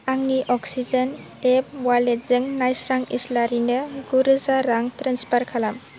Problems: constant background noise